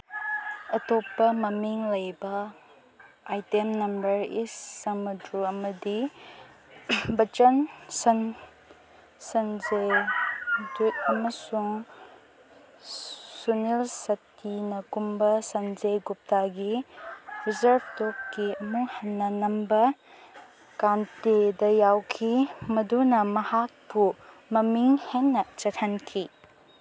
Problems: none marked